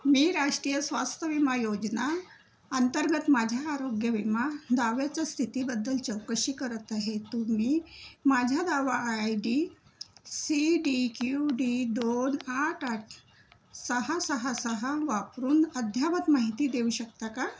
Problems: none marked